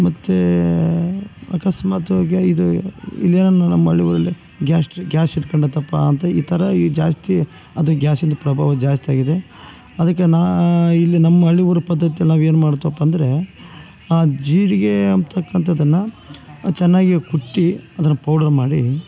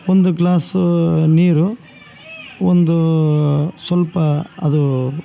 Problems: none marked